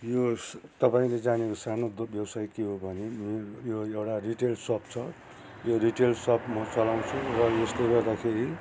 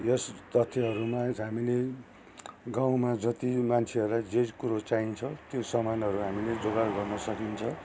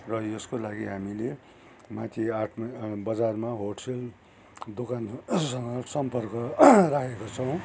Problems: constant background noise